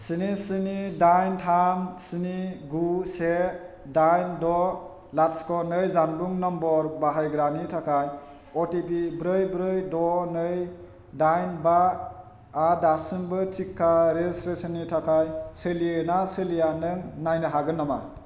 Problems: none marked